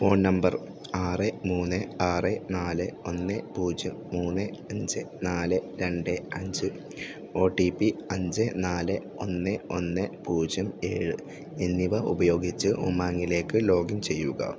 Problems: low volume